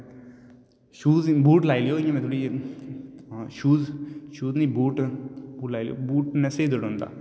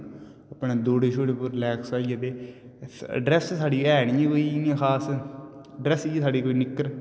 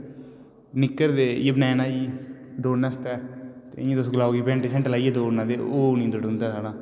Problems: constant background noise, echo